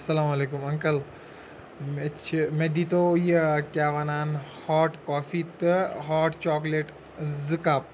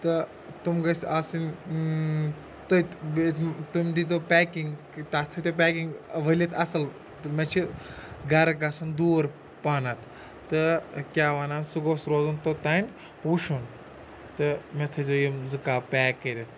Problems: constant background noise